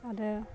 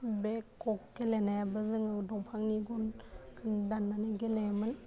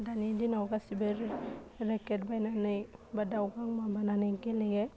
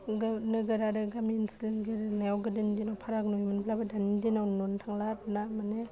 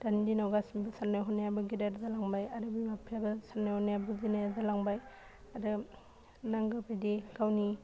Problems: constant background noise